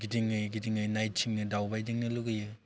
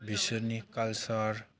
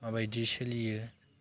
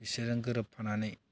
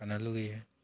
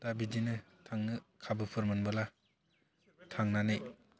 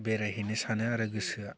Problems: low volume